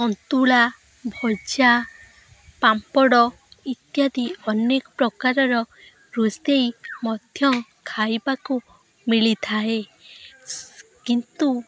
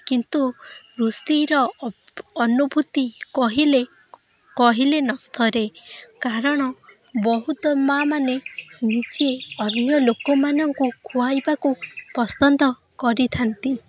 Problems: constant background noise